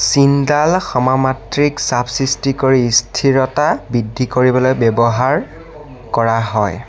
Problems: constant background noise, background conversations at intervals